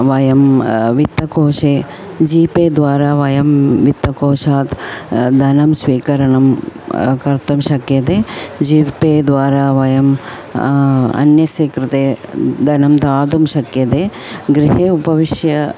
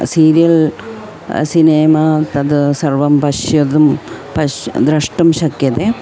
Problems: constant background noise, continuous background conversations